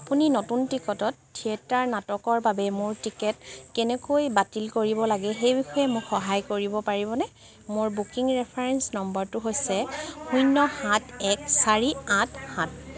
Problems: none marked